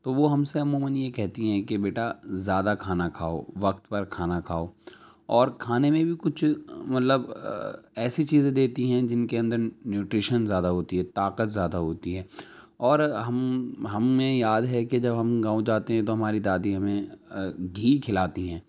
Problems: none marked